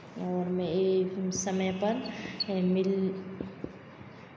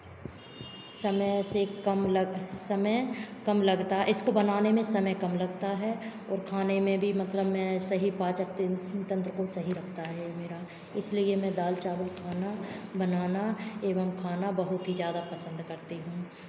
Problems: constant background noise